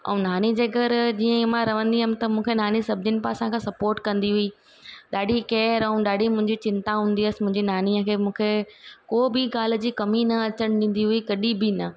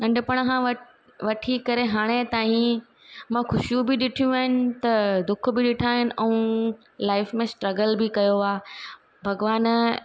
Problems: constant background noise